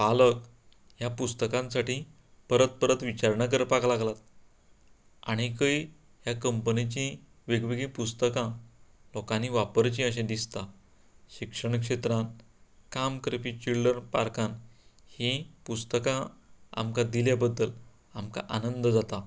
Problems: none marked